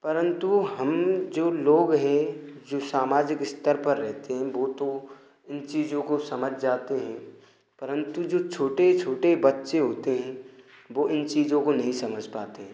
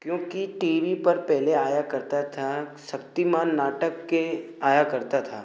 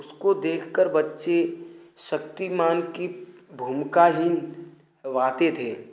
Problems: none marked